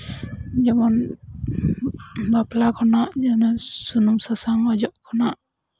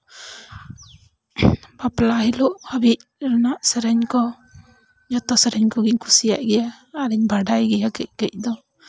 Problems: background sounds at intervals